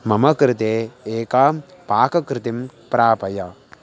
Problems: constant background noise